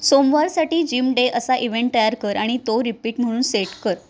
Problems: background sounds at intervals